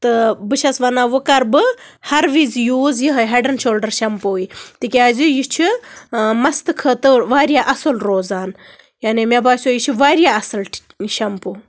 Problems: constant background noise